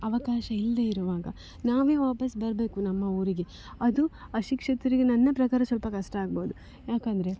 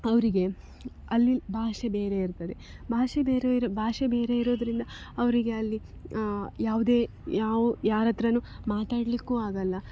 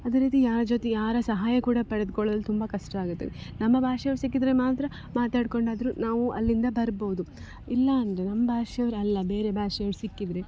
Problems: none marked